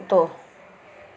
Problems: constant background noise